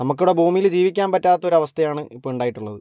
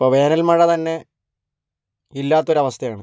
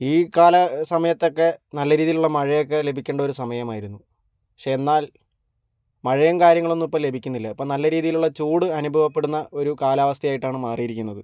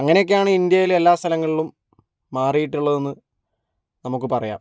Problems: none marked